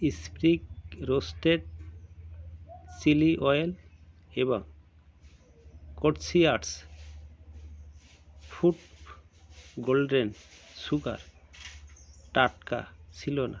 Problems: constant background noise